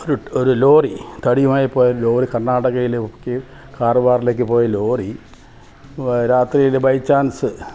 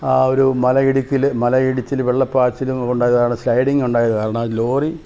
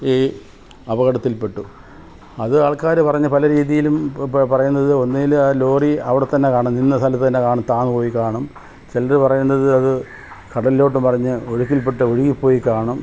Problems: background sounds at intervals